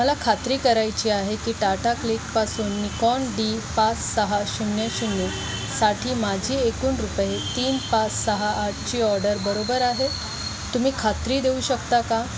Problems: constant background noise, background conversations at intervals